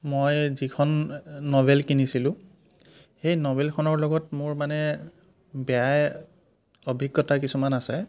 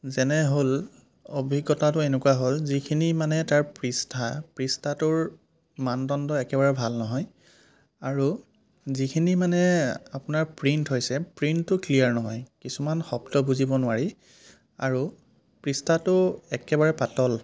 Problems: none marked